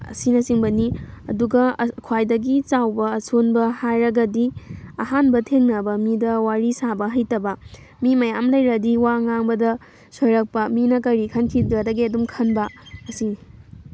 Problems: background sounds at intervals